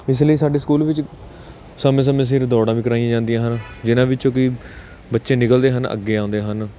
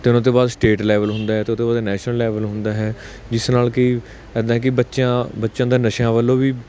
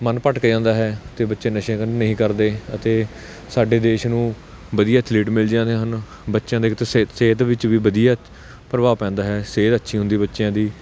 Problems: constant background noise